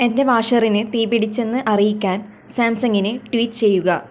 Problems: none marked